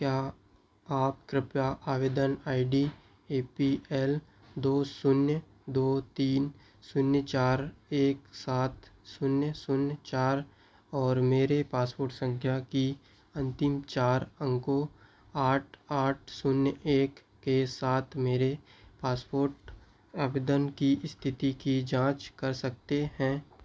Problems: background sounds at intervals